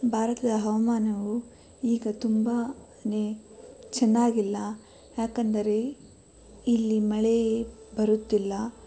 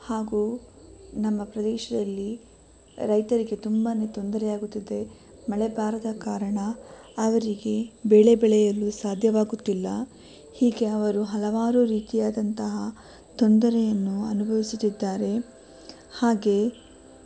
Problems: none marked